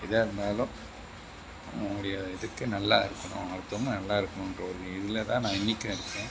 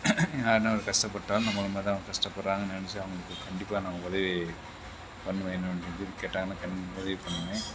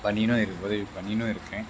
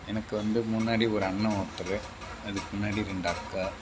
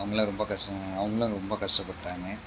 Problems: background sounds at intervals